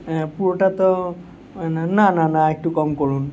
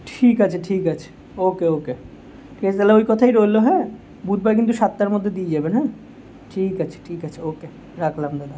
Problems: constant background noise